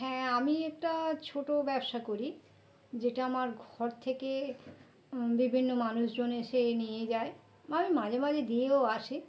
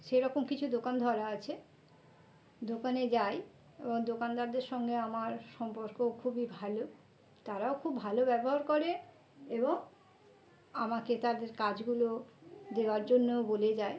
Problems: continuous background conversations